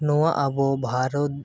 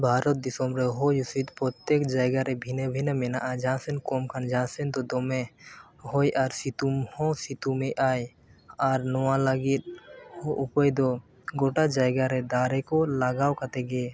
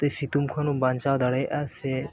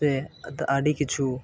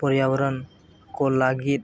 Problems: background sounds at intervals